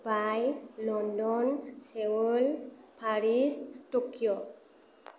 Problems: none marked